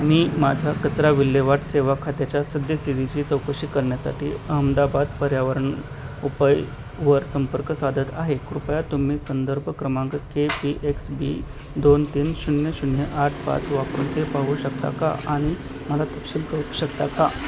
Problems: constant background noise